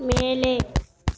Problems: constant background noise